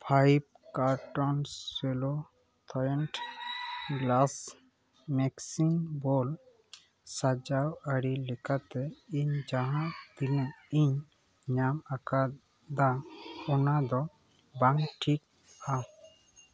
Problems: background sounds at intervals